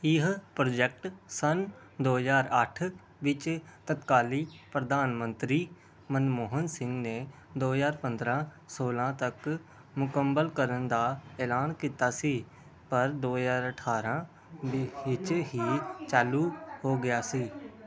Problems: none marked